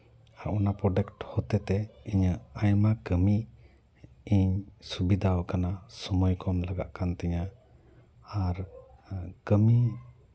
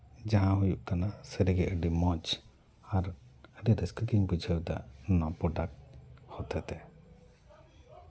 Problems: background sounds at intervals, background conversations at intervals